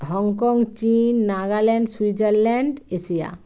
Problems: constant background noise